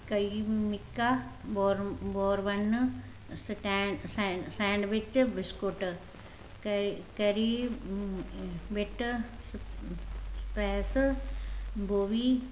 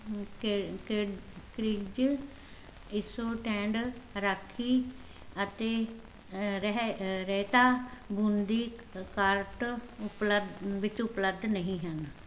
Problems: constant background noise